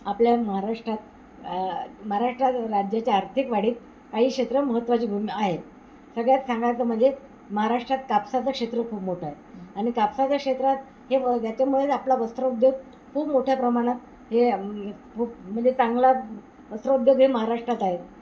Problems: constant background noise